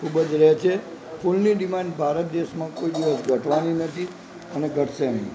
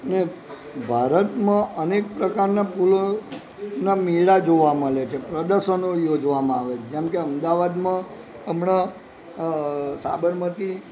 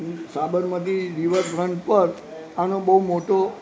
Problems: constant background noise